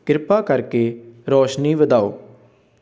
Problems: background sounds at intervals, background conversations at intervals